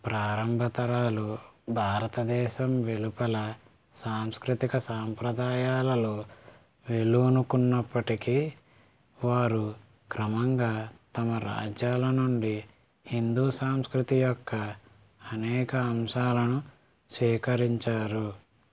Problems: constant background noise